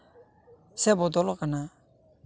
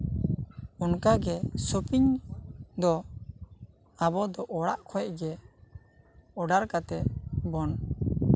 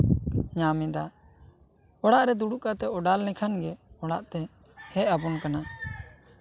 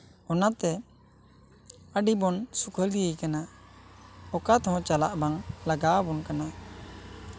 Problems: constant background noise, background conversations at intervals